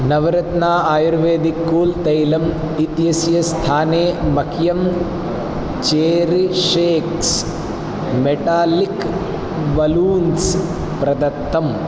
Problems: constant background noise